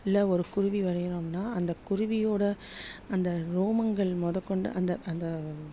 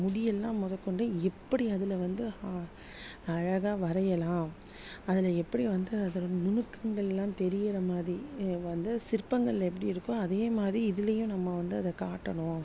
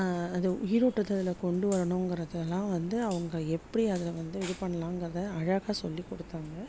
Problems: none marked